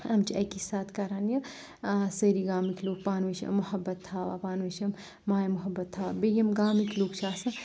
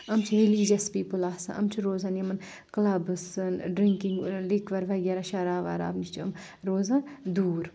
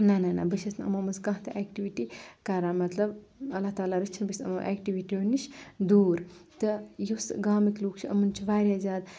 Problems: none marked